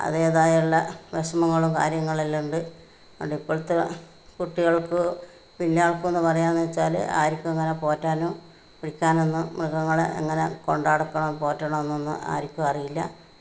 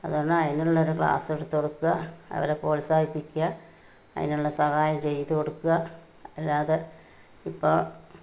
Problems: none marked